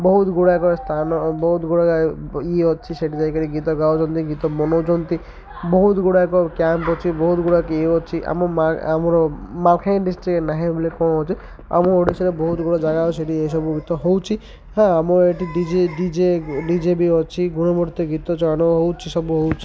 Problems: constant background noise, continuous background conversations